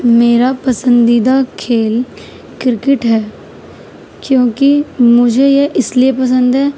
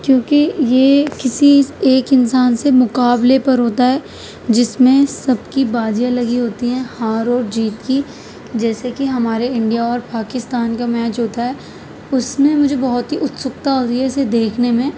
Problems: none marked